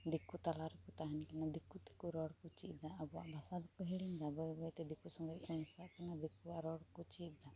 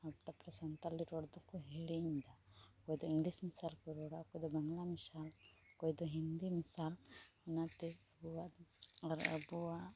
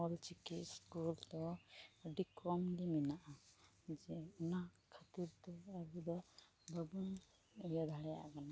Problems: constant background noise